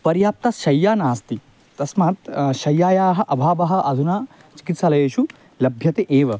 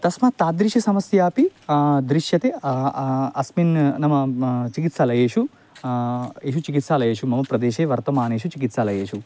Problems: constant background noise